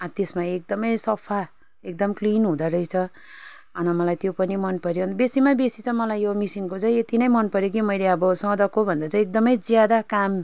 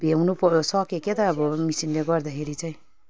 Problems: background conversations at intervals